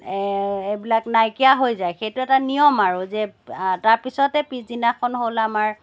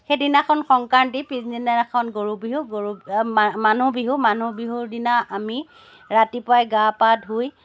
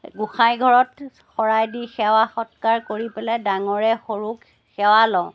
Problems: background sounds at intervals